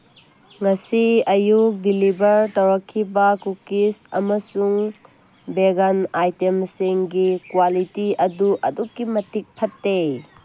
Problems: none marked